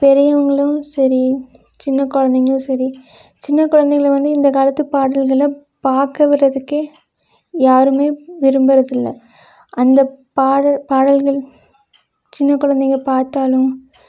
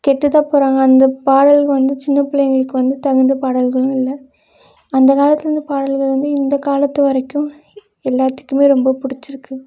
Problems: none marked